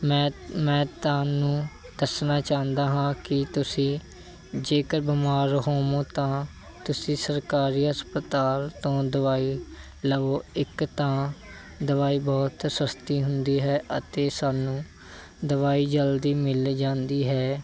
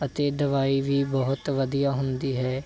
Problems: none marked